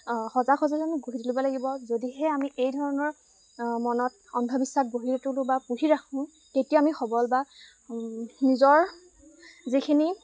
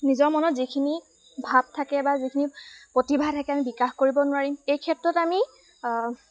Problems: constant background noise